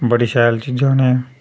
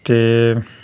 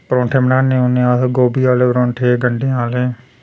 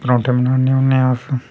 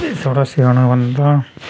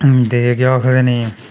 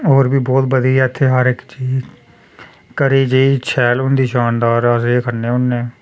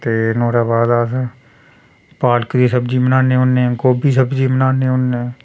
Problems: background sounds at intervals